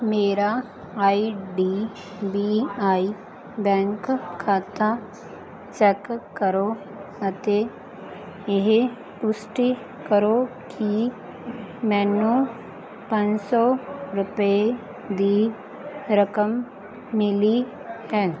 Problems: constant background noise